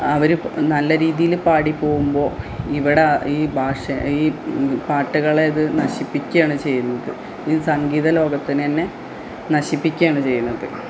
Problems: background sounds at intervals